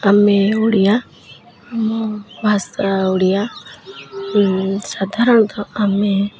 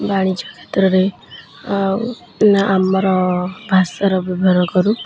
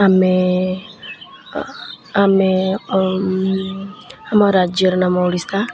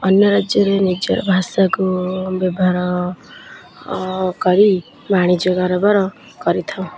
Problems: constant background noise